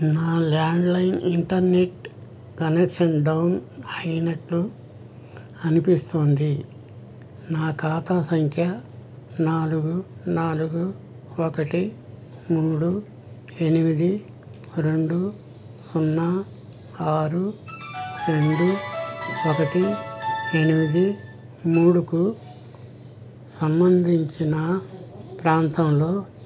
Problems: background sounds at intervals